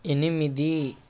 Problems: constant background noise